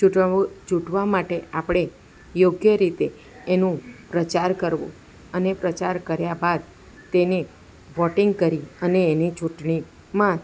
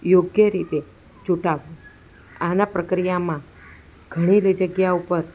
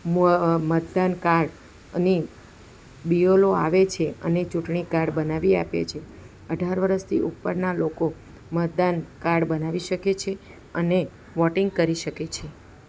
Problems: background conversations at intervals